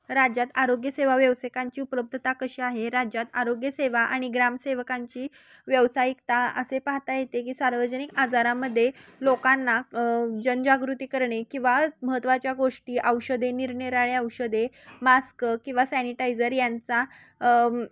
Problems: constant background noise, continuous background conversations